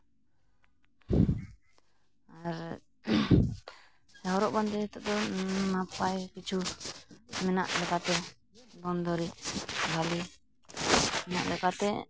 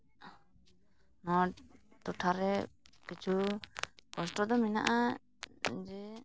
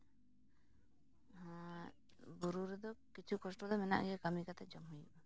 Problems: constant background noise, low volume